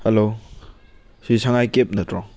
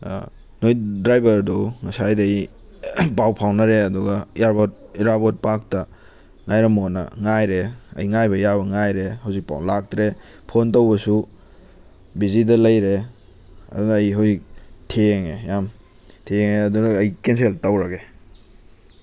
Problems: constant background noise